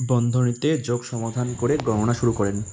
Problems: constant background noise